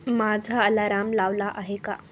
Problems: none marked